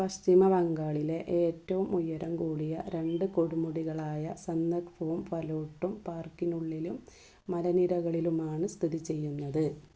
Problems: low volume